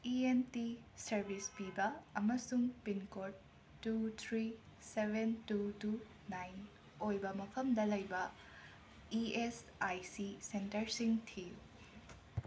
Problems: constant background noise